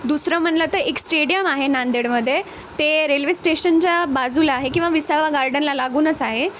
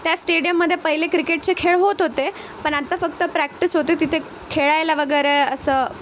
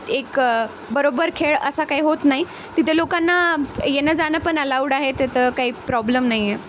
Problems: constant background noise